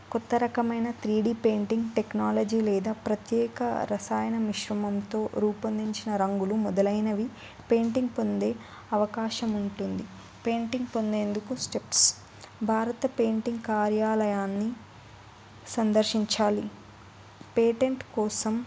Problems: none marked